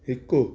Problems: none marked